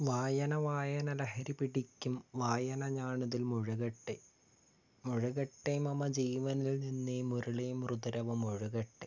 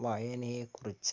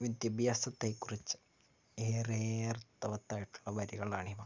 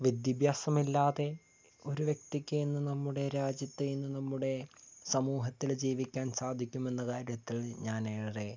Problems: low volume